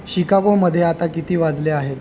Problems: constant background noise